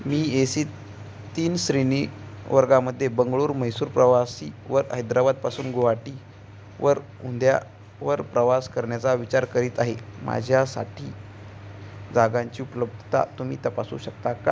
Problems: none marked